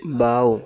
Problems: constant background noise, continuous background conversations